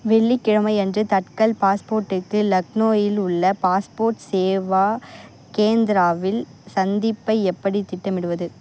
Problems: constant background noise